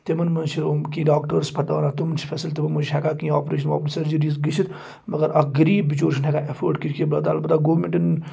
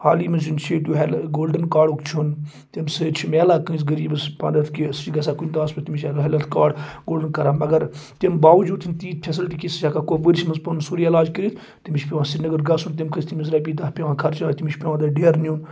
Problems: background sounds at intervals